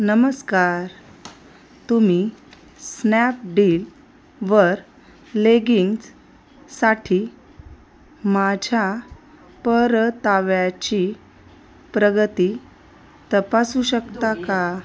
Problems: constant background noise, background conversations at intervals